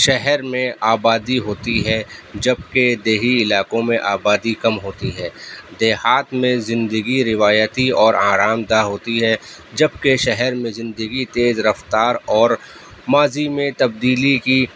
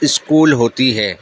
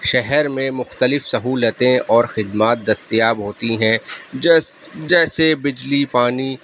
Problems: background sounds at intervals